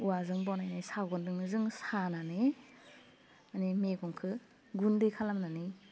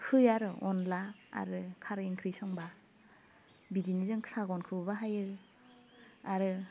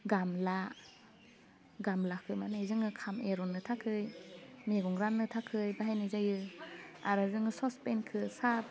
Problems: background sounds at intervals, low volume